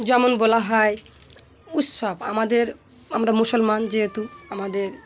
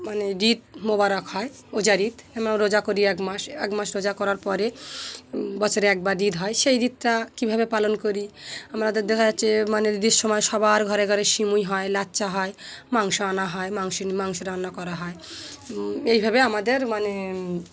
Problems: constant background noise, continuous background conversations